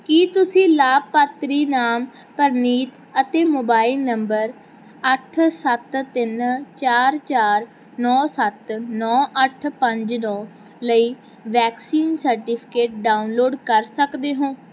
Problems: background sounds at intervals